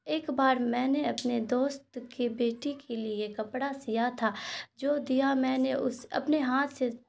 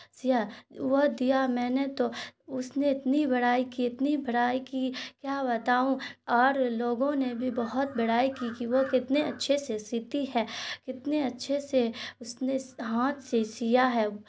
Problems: constant background noise